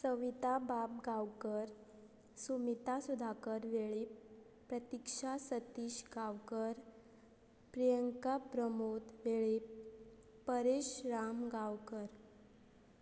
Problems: constant background noise